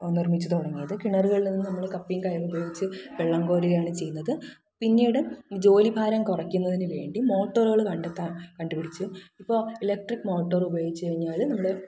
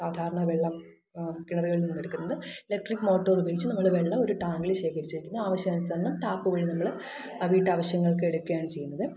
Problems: background sounds at intervals, echo